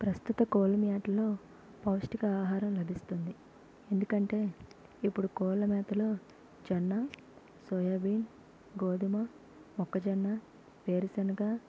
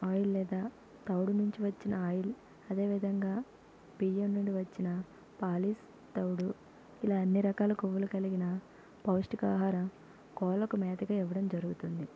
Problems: constant background noise, low volume